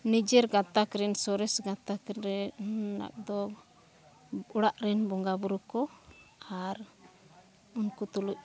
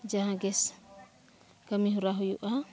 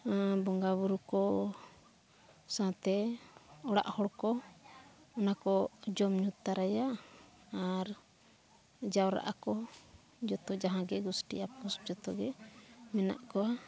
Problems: none marked